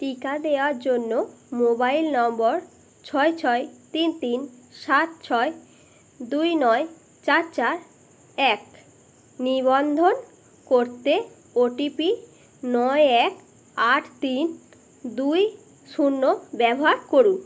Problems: none marked